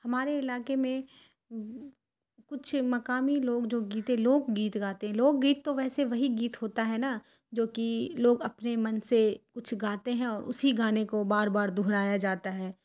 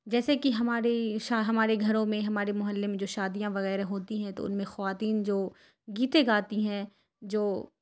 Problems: none marked